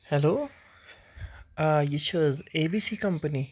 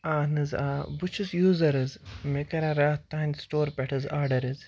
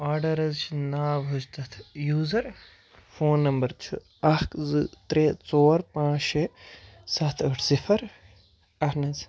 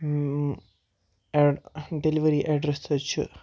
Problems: background sounds at intervals